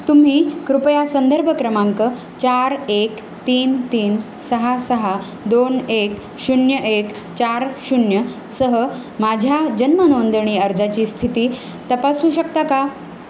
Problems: constant background noise